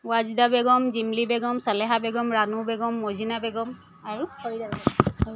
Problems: none marked